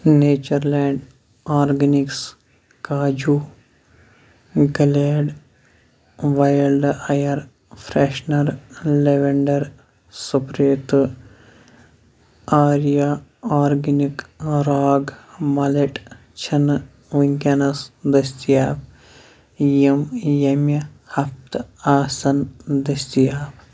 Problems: none marked